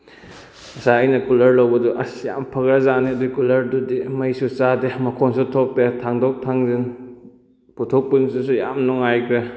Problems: none marked